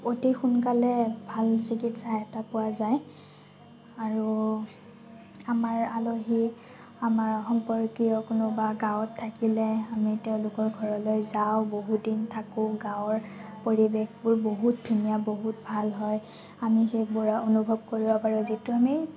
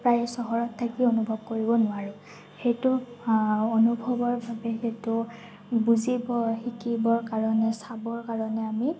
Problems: constant background noise